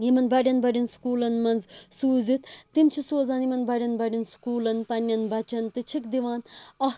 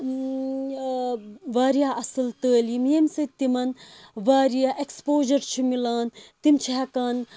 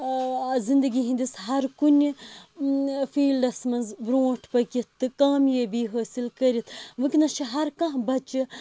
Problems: background sounds at intervals